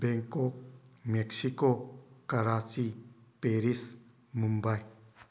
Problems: constant background noise